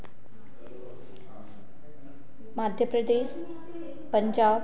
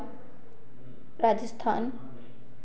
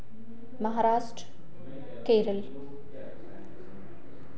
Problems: constant background noise